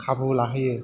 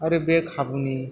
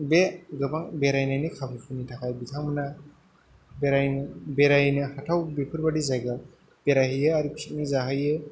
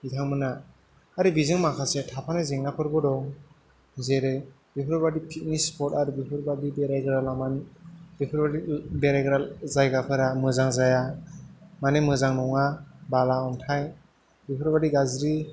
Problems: background sounds at intervals